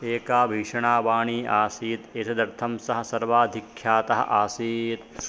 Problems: constant background noise